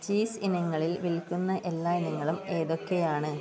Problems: low volume